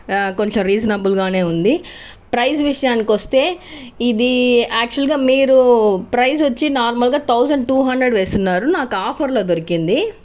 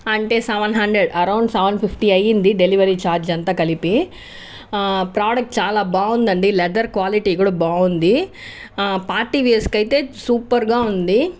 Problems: none marked